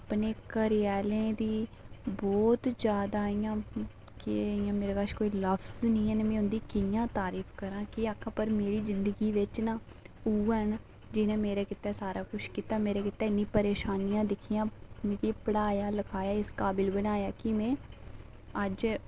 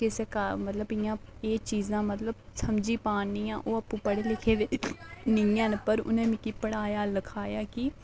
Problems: background sounds at intervals, low volume